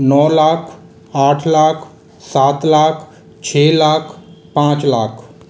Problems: constant background noise, echo